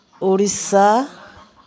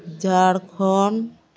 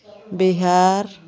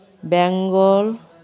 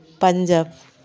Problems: background conversations at intervals